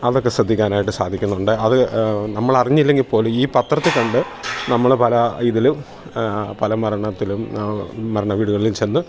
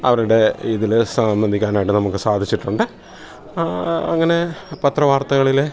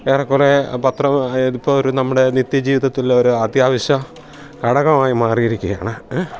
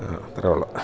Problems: none marked